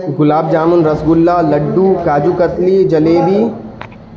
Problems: constant background noise